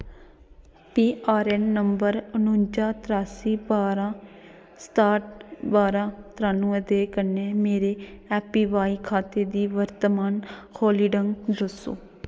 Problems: background sounds at intervals